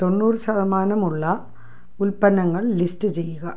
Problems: low volume